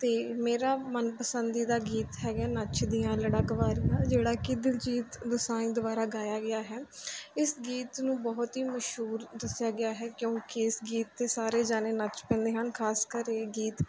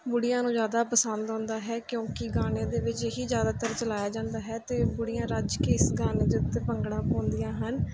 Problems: none marked